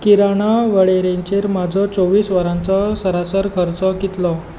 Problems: none marked